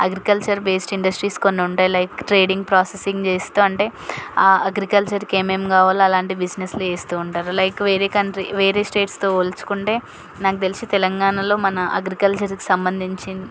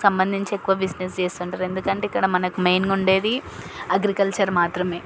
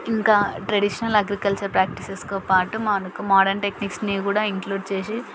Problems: none marked